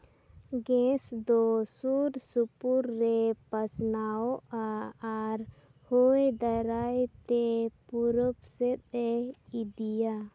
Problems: background sounds at intervals